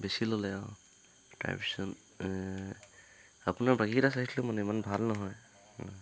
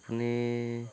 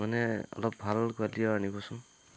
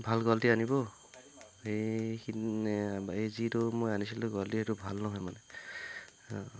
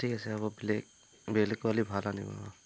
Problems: constant background noise